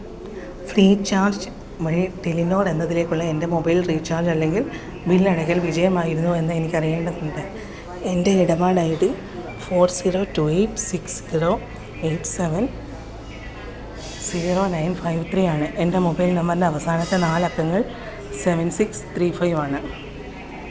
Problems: none marked